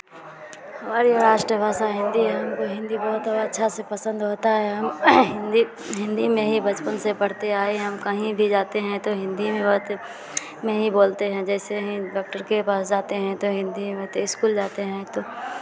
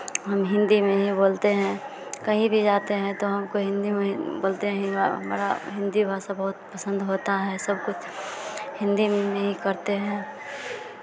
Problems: continuous background conversations